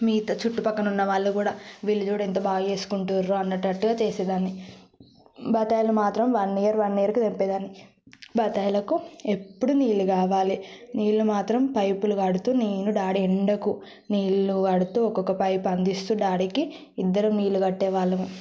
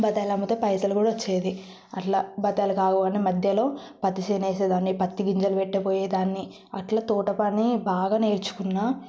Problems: none marked